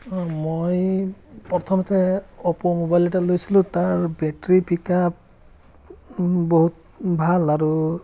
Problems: background sounds at intervals, background conversations at intervals